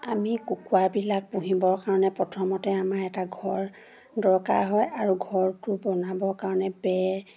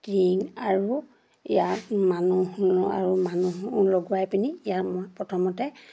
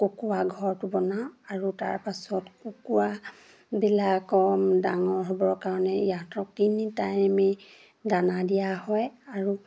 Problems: none marked